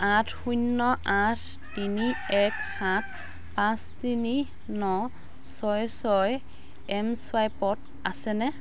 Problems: constant background noise, background conversations at intervals